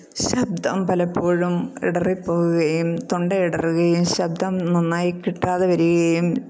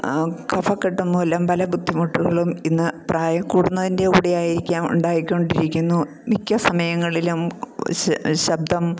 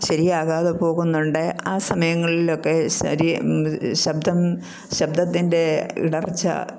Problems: none marked